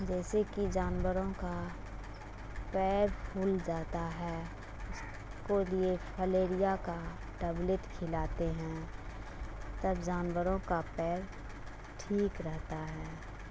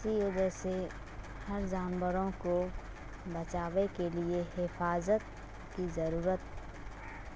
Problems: constant background noise